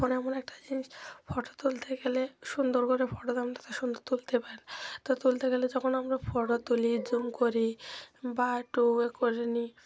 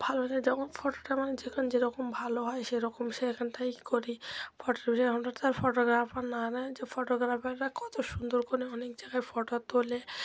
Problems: none marked